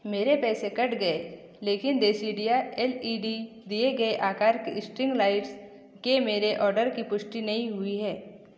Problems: echo